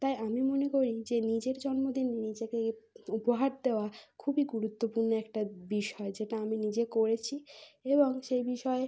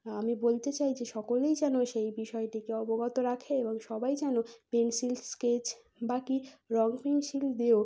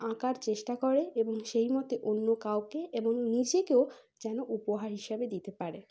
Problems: none marked